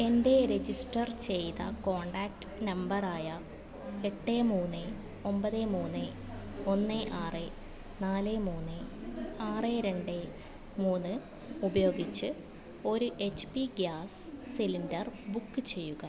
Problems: background sounds at intervals